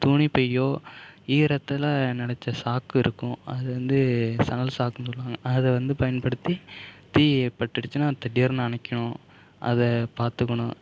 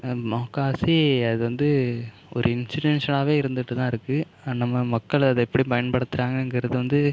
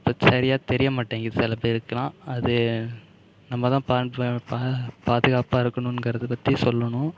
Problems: background sounds at intervals